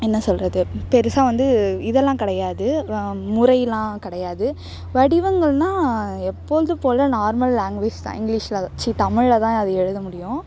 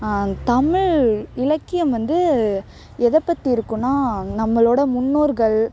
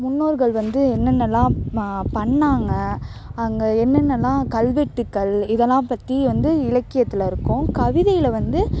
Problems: constant background noise